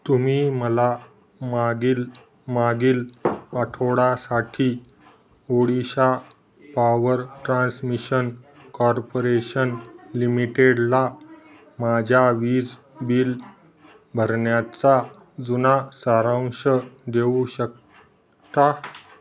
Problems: background sounds at intervals